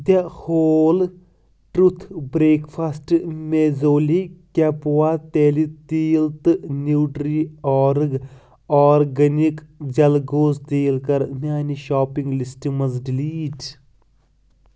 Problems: constant background noise